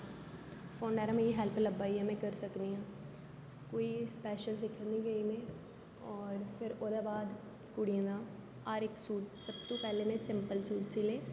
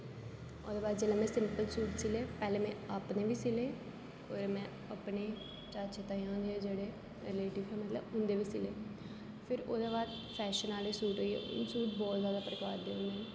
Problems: low volume